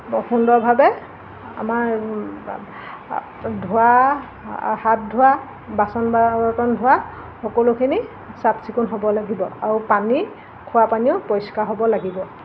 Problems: constant background noise